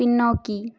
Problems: none marked